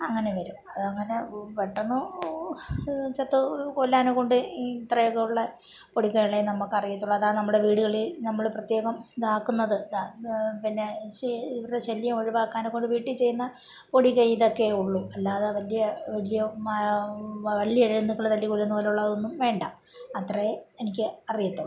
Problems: background sounds at intervals